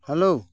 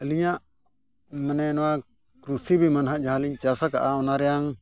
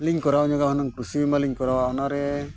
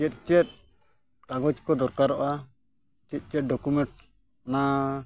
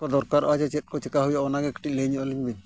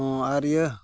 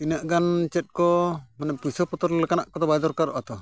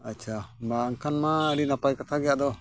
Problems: none marked